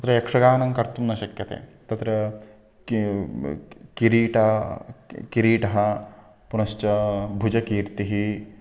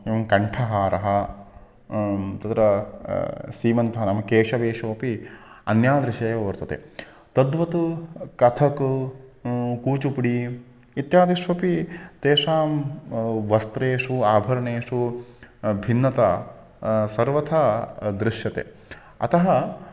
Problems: constant background noise